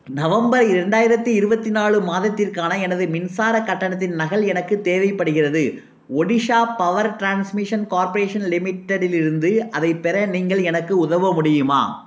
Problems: none marked